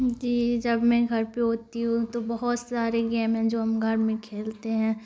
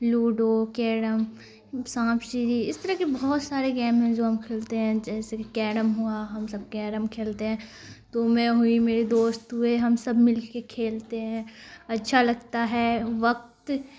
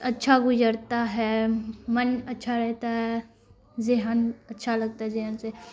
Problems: constant background noise